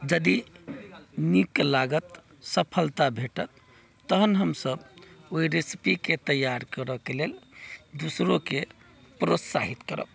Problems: background sounds at intervals